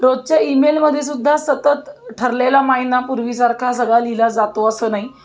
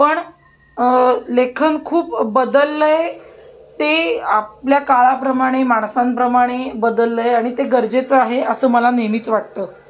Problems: background sounds at intervals